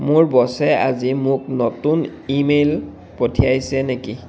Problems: constant background noise